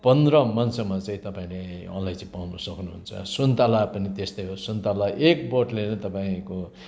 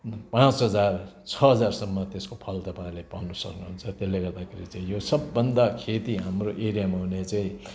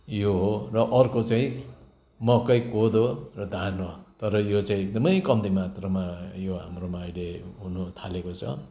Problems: background sounds at intervals